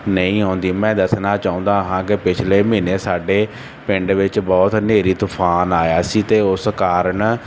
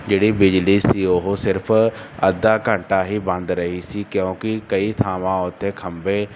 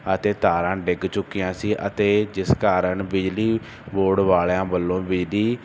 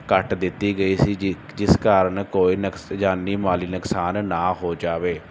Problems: constant background noise